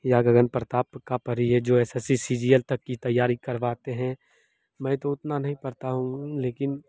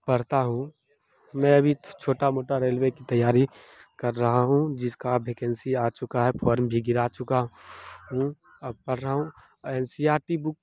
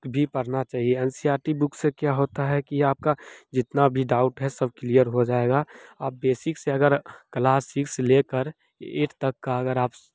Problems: none marked